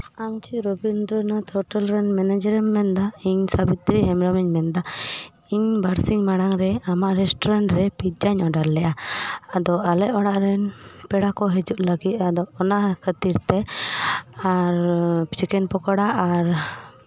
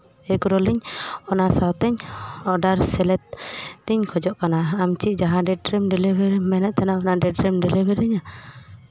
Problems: background sounds at intervals